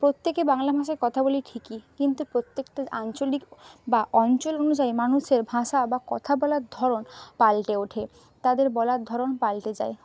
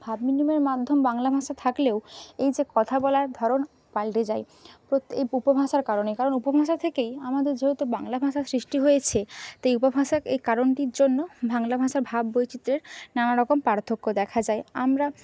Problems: none marked